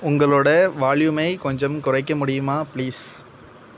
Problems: constant background noise